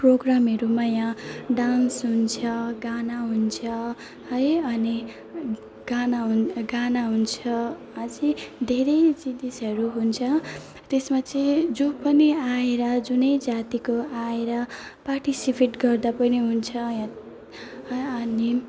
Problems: constant background noise, low volume